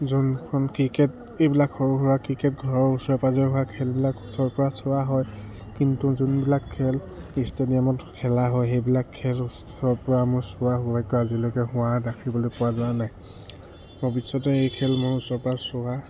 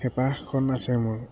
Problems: background sounds at intervals